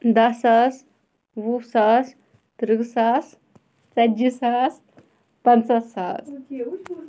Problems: background sounds at intervals, background conversations at intervals